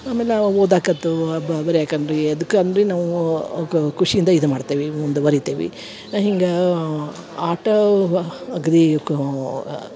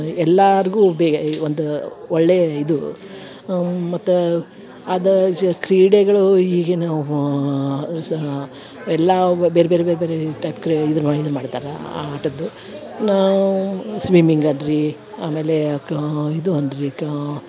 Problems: background sounds at intervals